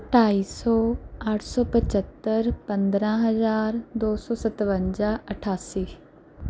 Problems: none marked